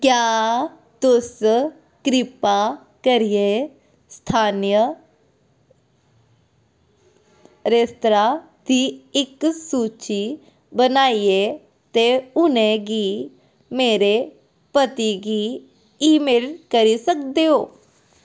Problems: background sounds at intervals